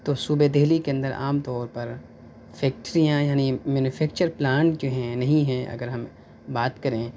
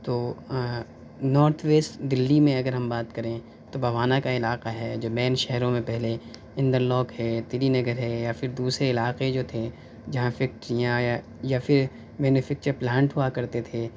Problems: none marked